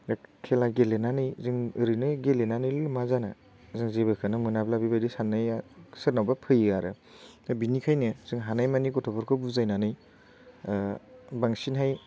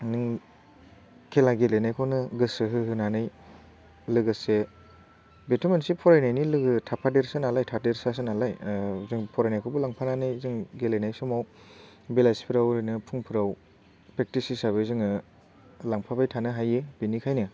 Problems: none marked